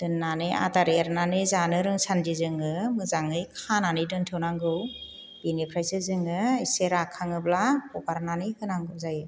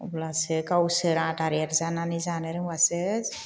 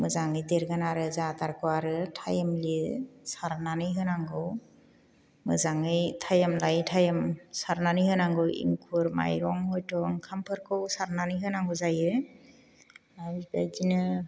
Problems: none marked